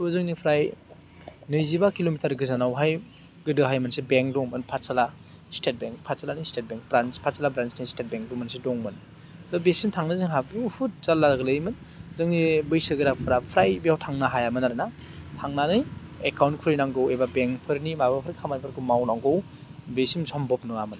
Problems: constant background noise